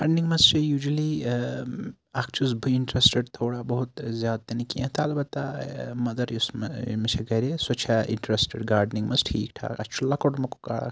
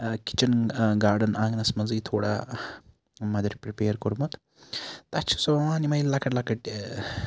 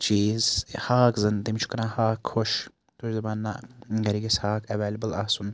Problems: background sounds at intervals